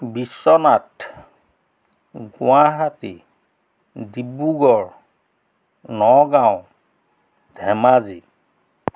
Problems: none marked